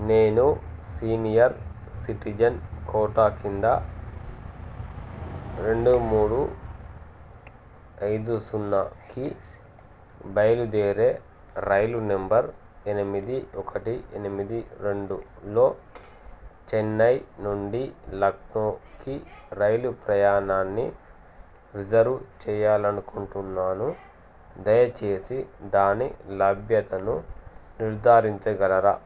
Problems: constant background noise